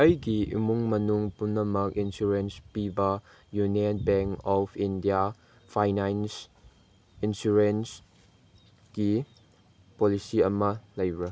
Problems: none marked